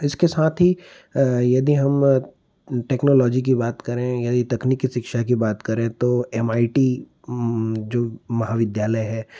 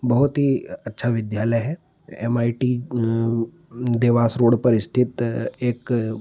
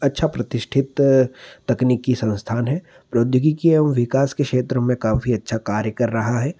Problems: none marked